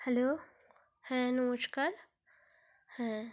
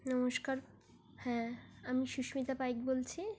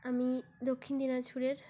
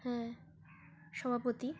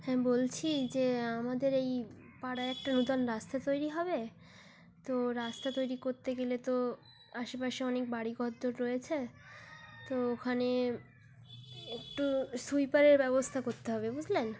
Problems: background sounds at intervals